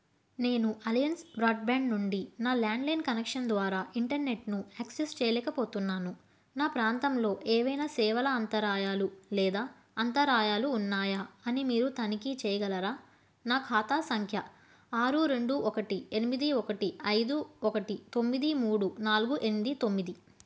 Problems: none marked